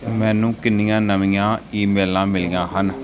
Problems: background sounds at intervals, background conversations at intervals